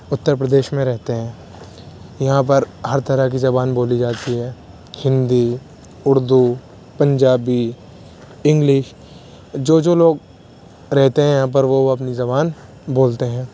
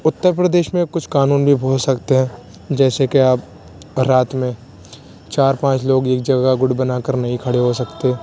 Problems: constant background noise